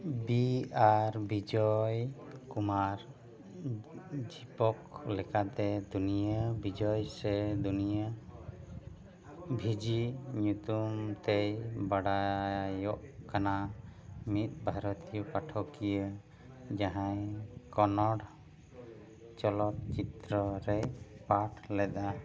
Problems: none marked